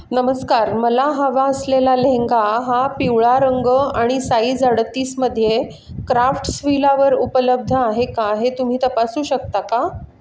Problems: background sounds at intervals